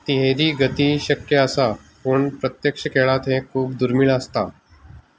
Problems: constant background noise